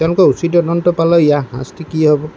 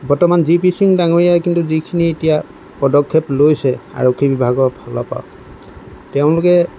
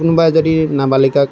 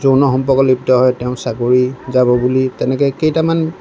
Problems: none marked